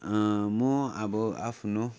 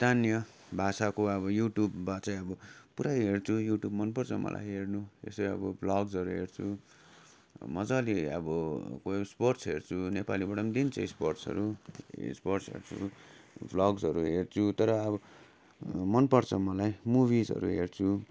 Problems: constant background noise